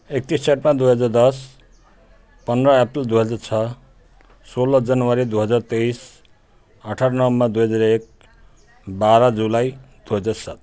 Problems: continuous background conversations